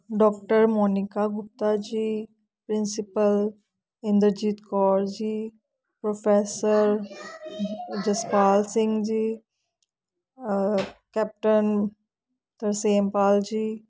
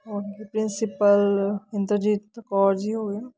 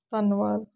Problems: background conversations at intervals